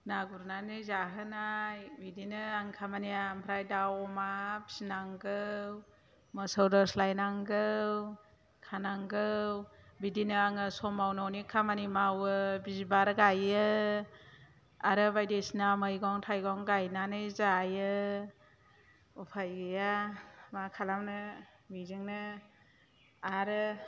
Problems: low volume